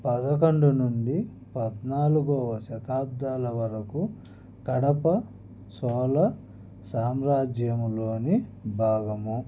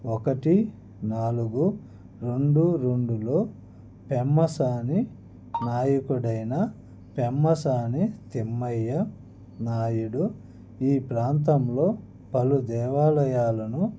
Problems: background conversations at intervals